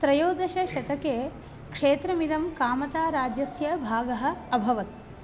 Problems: constant background noise